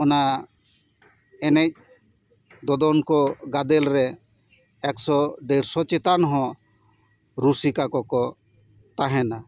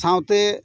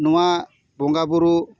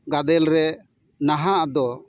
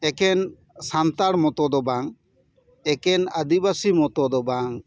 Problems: none marked